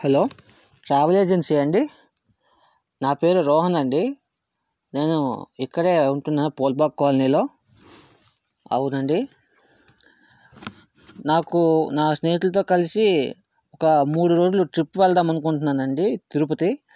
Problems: none marked